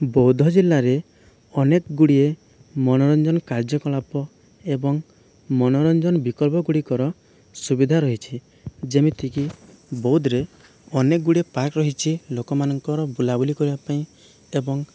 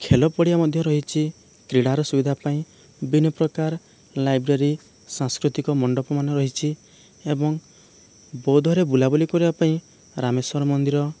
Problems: none marked